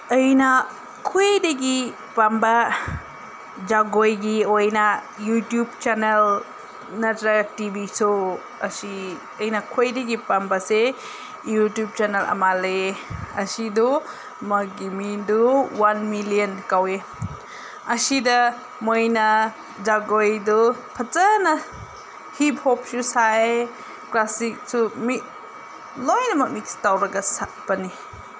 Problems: none marked